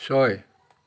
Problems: none marked